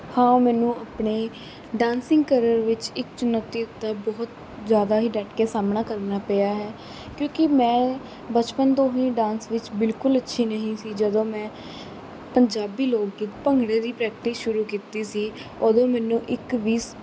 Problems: constant background noise